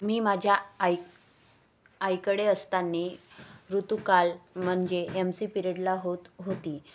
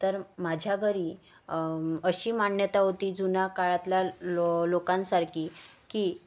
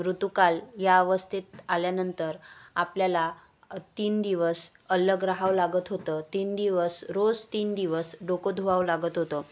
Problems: none marked